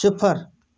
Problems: none marked